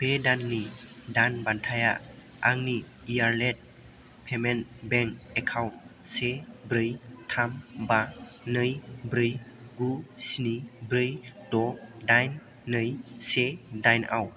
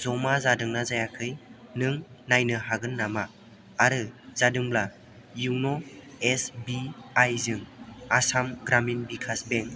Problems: constant background noise